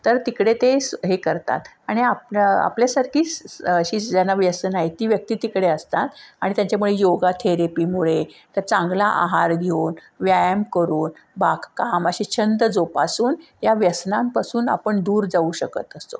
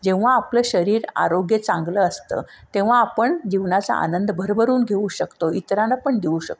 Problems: none marked